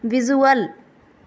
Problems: none marked